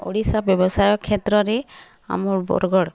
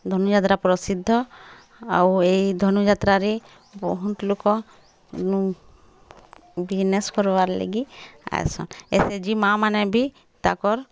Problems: background sounds at intervals, background conversations at intervals